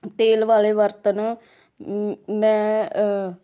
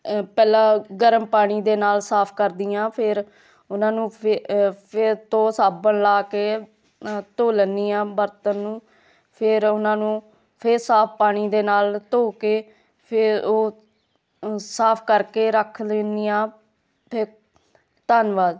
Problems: none marked